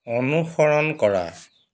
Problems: background sounds at intervals